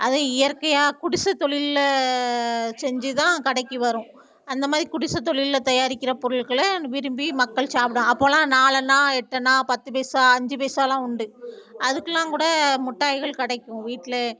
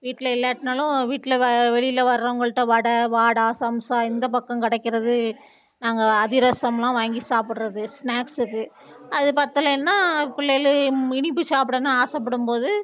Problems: background conversations at intervals